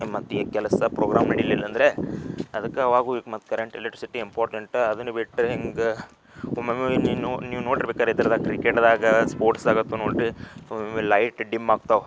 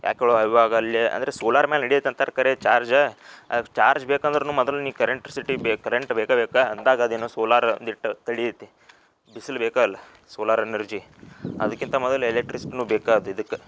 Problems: background sounds at intervals